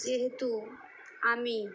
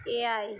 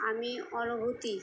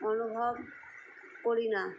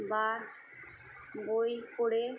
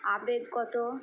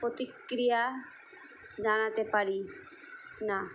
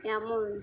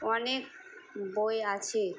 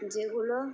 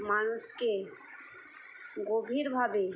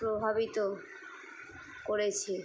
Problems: background sounds at intervals